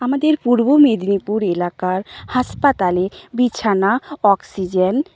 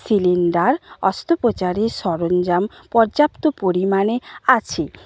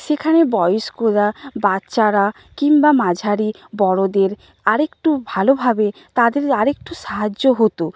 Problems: none marked